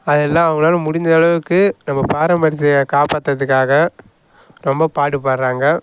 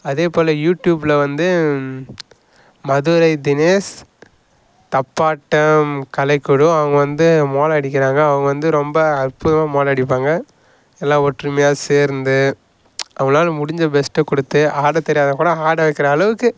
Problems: none marked